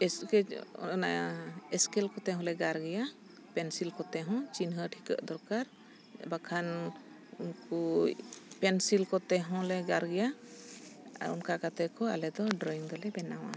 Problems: background sounds at intervals